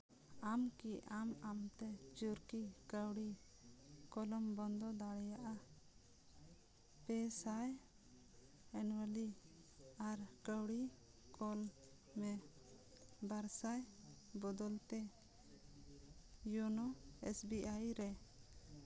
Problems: none marked